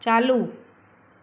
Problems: none marked